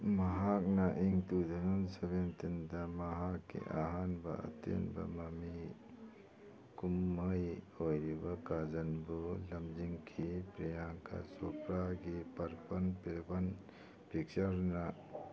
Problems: background sounds at intervals, background conversations at intervals